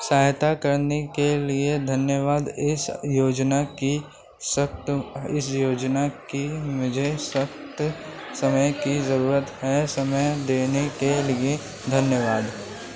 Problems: constant background noise